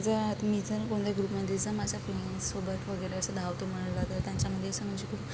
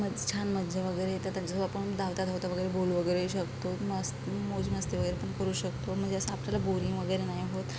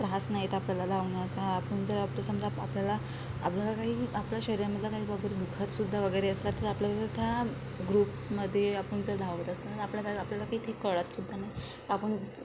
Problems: low volume